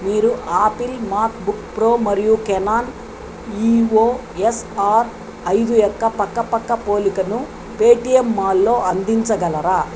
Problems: constant background noise